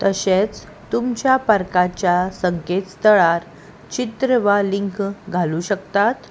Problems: constant background noise